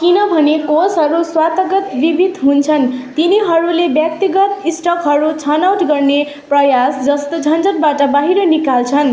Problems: continuous background conversations